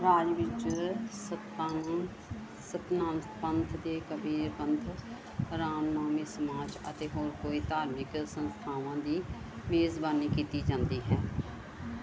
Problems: none marked